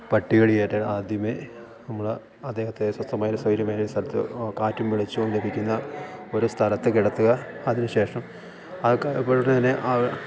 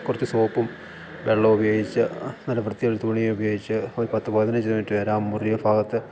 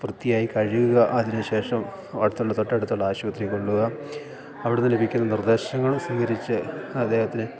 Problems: background sounds at intervals, low volume